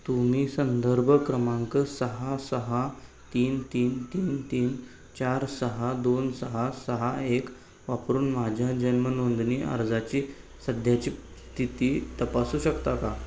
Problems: none marked